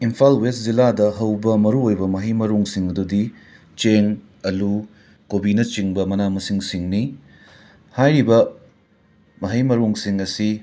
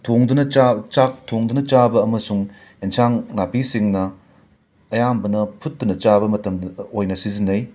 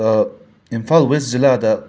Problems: background sounds at intervals